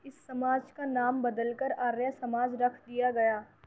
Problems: constant background noise, low volume